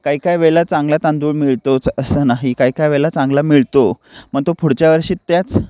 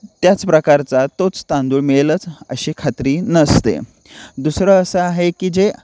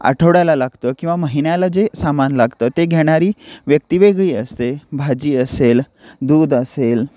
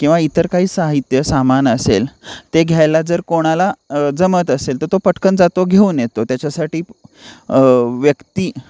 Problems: none marked